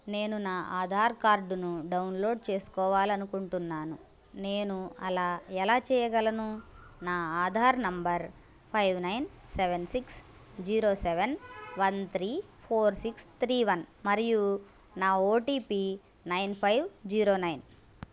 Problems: background sounds at intervals